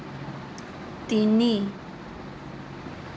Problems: constant background noise